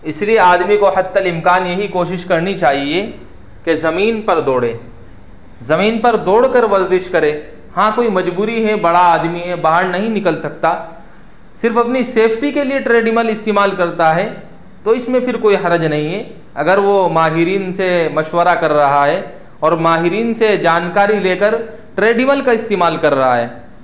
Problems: none marked